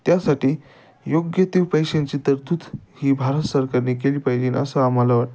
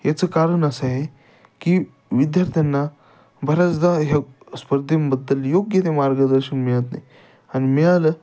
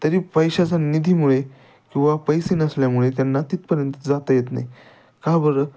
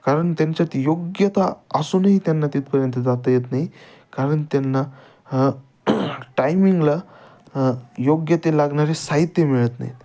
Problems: none marked